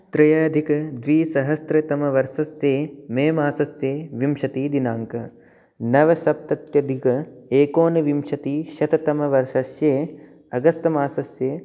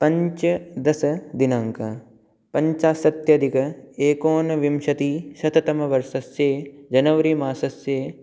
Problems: none marked